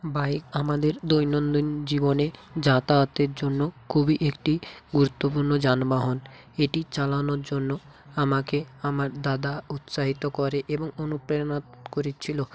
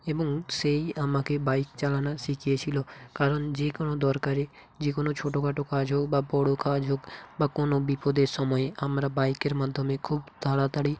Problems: constant background noise